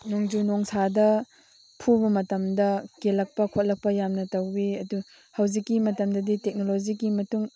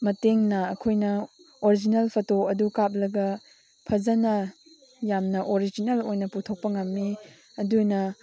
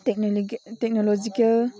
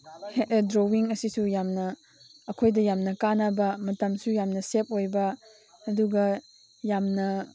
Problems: none marked